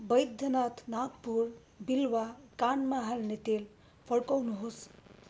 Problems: none marked